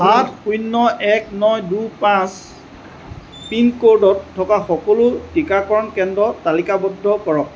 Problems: none marked